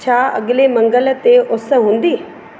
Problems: constant background noise, echo